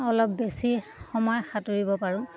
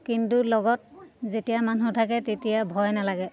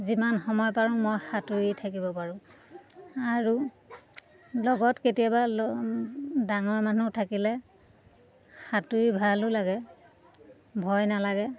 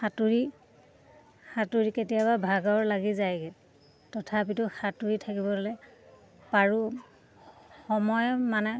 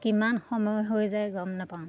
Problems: constant background noise